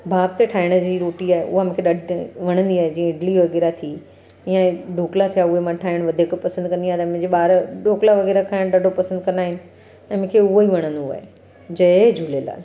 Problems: constant background noise